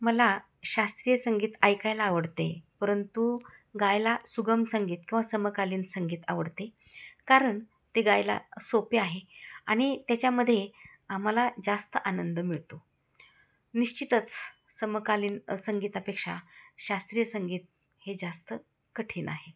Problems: none marked